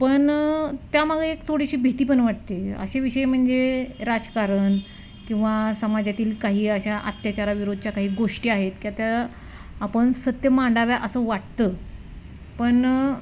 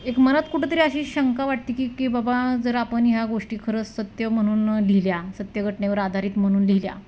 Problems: constant background noise